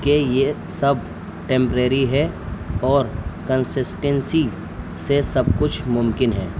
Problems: constant background noise